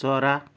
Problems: none marked